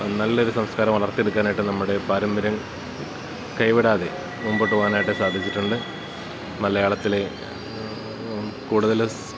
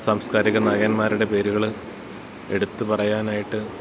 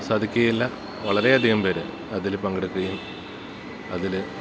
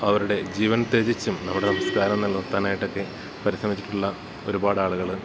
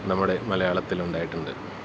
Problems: constant background noise